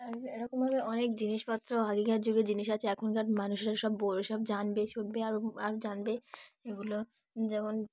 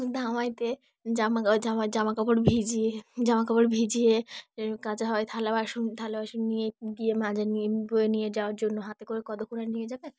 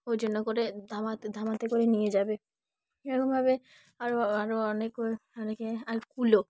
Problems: background sounds at intervals, background conversations at intervals